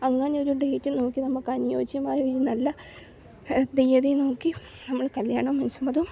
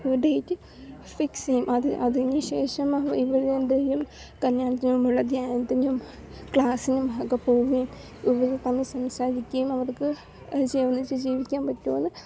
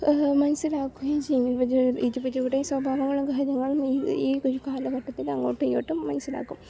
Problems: background sounds at intervals, low volume